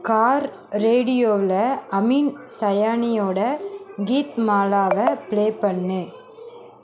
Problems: background sounds at intervals